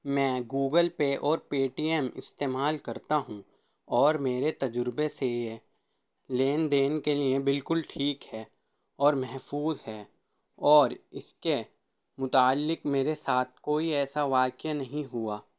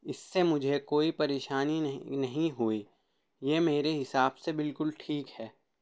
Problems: none marked